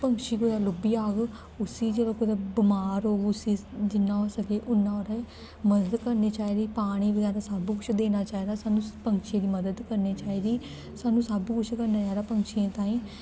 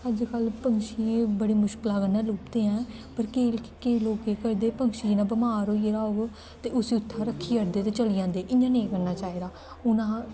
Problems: constant background noise